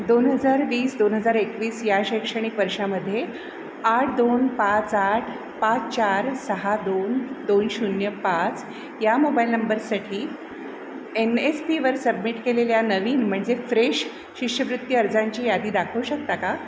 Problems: constant background noise